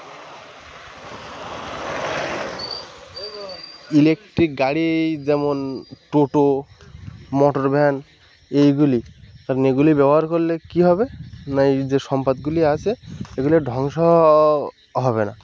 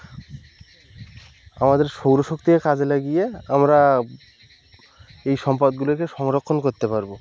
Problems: constant background noise